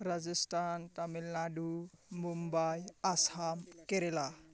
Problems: constant background noise